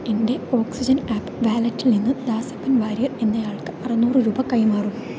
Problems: none marked